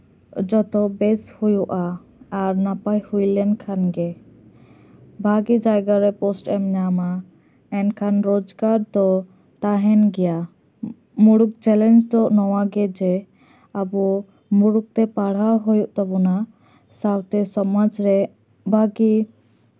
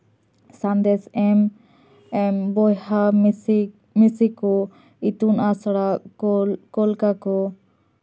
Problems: none marked